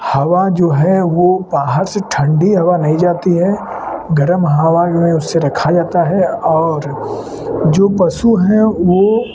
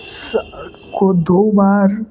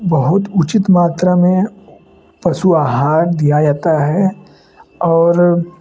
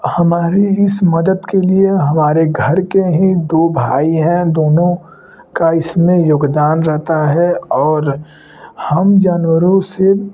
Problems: none marked